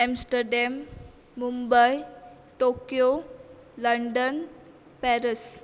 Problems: constant background noise